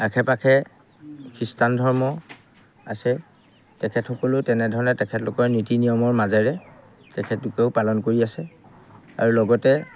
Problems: background sounds at intervals